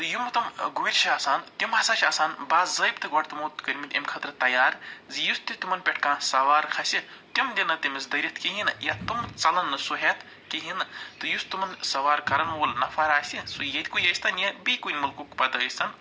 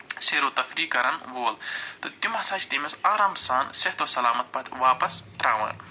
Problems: none marked